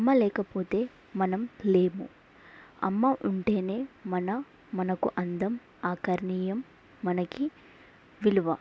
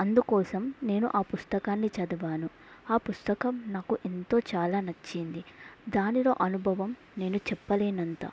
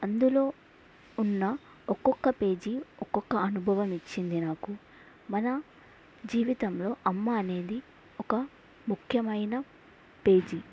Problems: background sounds at intervals